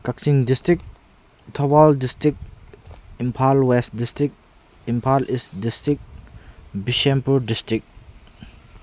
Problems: constant background noise